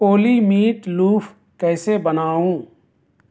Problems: constant background noise